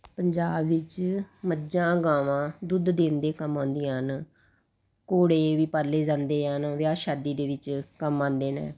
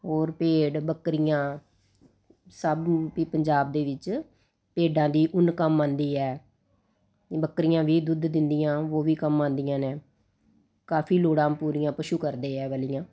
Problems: constant background noise